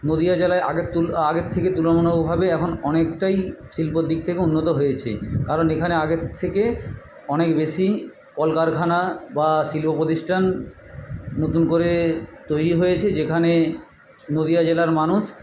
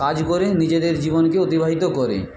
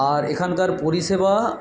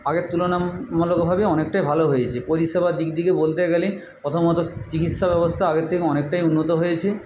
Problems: background sounds at intervals